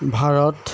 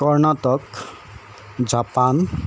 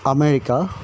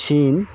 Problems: constant background noise